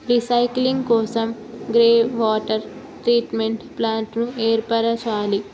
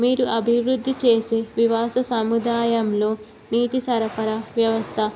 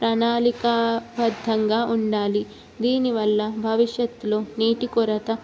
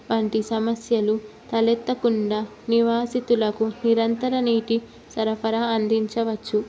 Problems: none marked